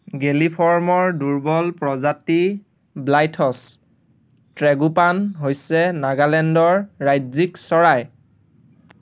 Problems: constant background noise